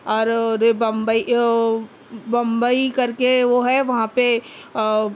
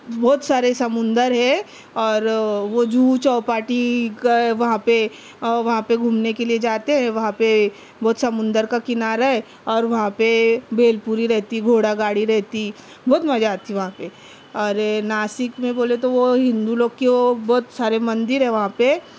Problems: none marked